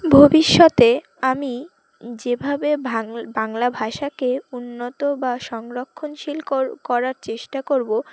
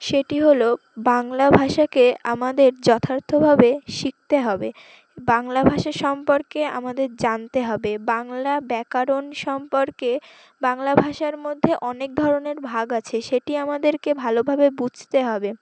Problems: none marked